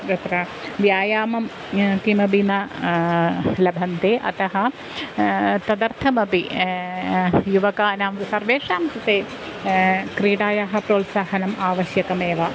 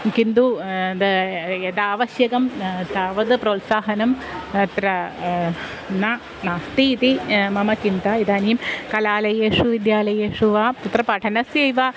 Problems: constant background noise